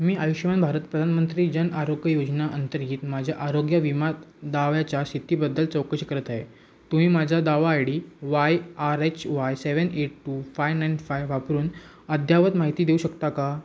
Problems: constant background noise